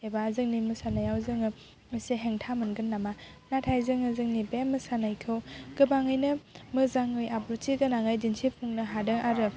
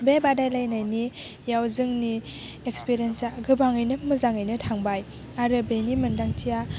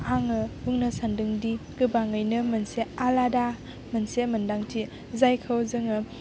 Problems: none marked